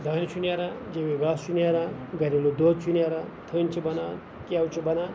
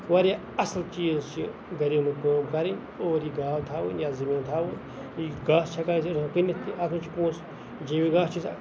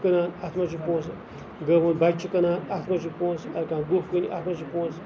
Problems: constant background noise, background conversations at intervals